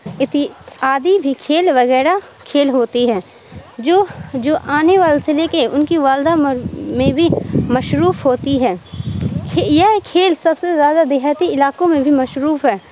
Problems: constant background noise